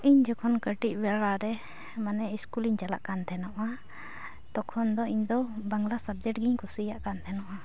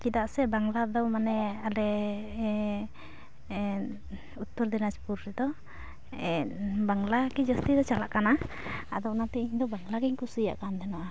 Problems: background sounds at intervals